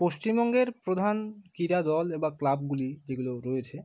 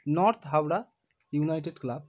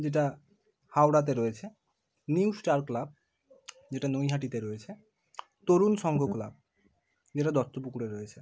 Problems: background sounds at intervals